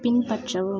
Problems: constant background noise